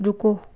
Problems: constant background noise